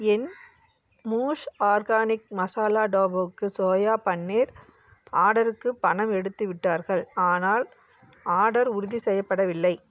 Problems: none marked